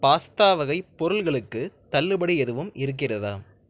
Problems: none marked